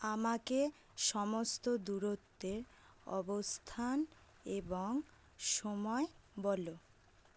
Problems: none marked